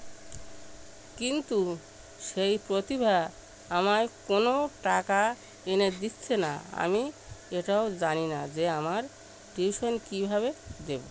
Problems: constant background noise